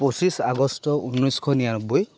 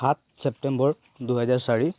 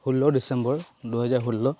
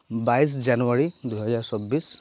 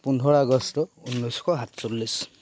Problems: none marked